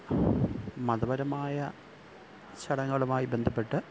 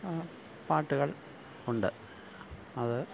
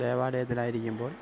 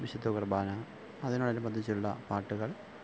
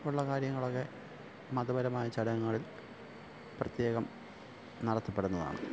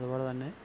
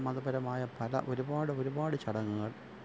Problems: none marked